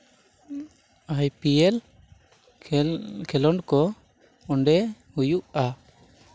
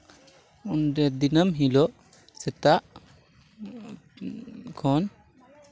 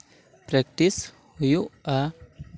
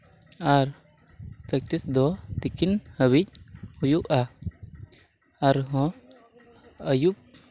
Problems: background sounds at intervals